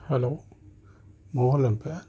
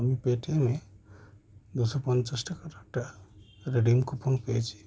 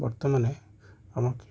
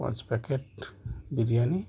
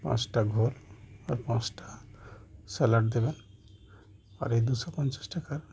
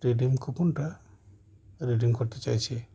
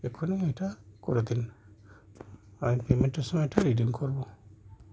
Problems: constant background noise